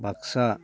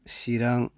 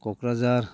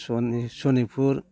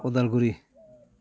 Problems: constant background noise